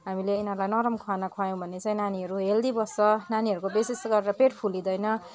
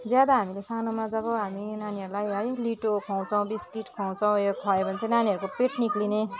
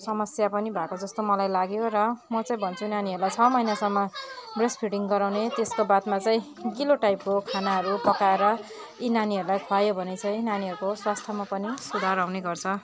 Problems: continuous background conversations